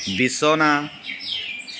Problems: constant background noise